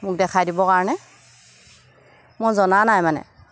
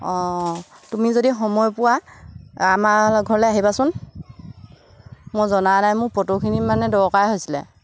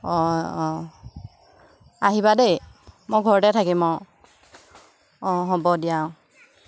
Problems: constant background noise